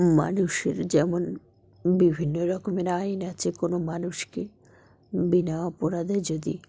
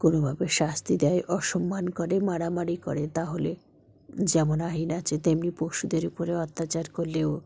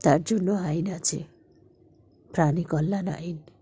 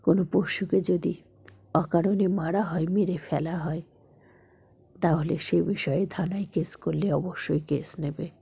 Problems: none marked